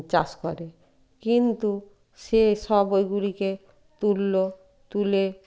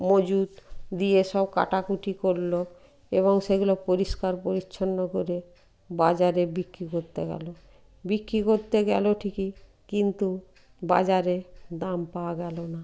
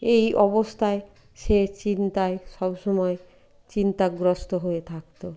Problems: none marked